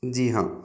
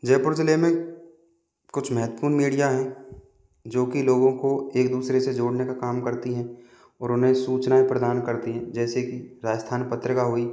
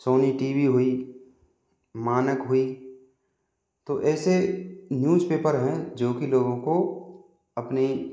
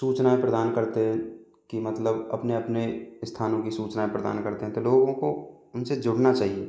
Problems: background sounds at intervals